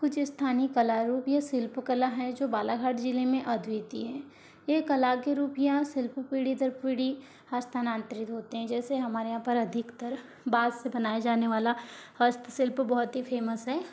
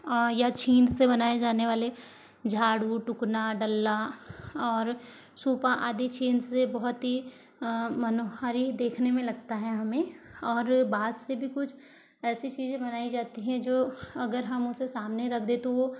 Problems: low volume